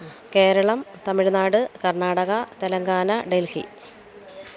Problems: background sounds at intervals